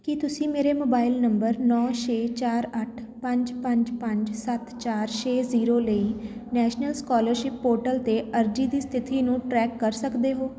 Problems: constant background noise